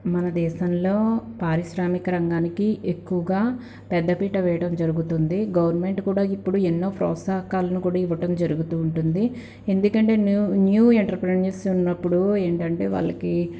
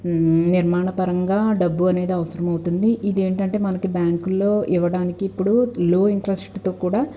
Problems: none marked